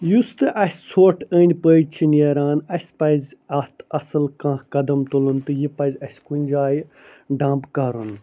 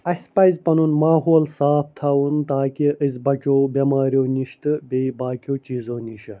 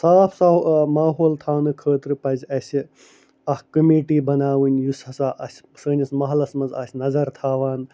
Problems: none marked